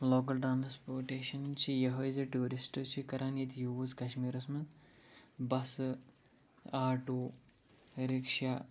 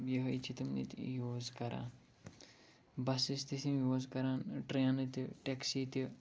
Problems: low volume